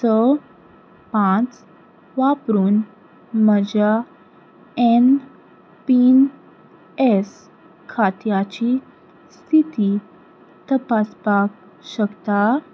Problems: background sounds at intervals